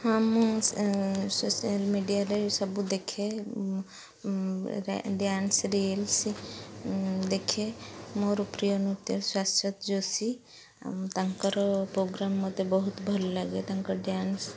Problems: constant background noise